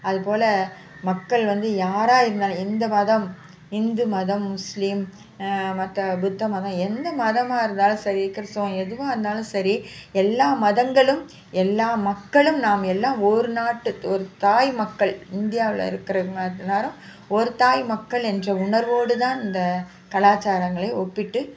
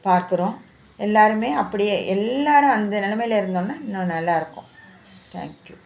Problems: constant background noise